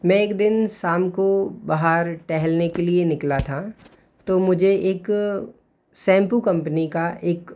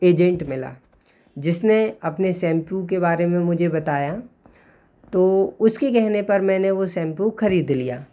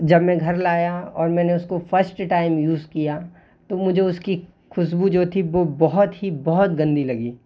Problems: constant background noise